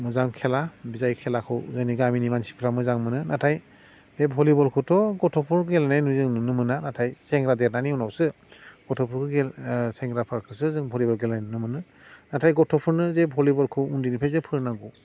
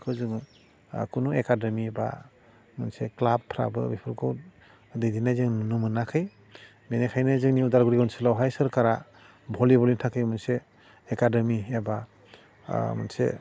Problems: constant background noise